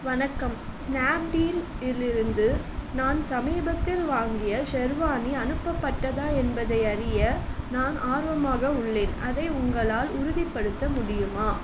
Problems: constant background noise